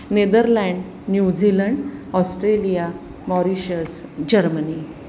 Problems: none marked